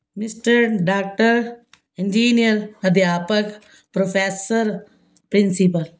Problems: background sounds at intervals